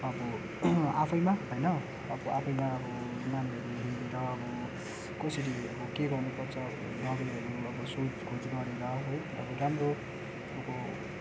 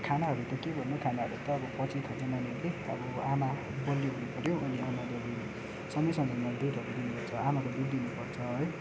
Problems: background sounds at intervals